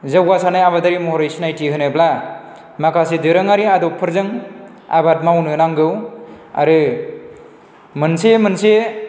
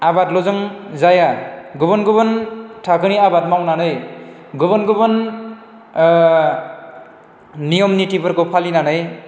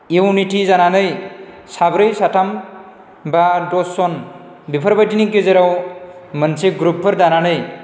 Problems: none marked